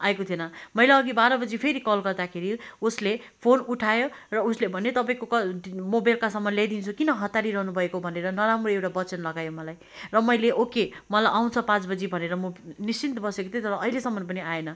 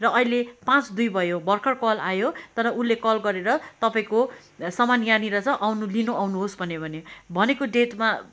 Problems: none marked